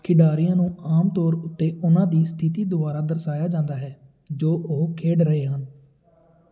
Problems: continuous background conversations